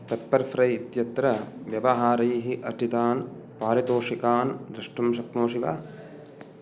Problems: background sounds at intervals